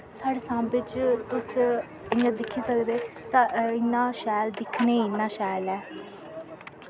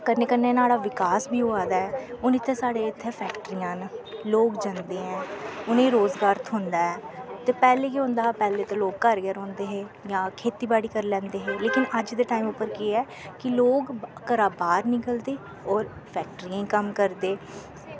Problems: constant background noise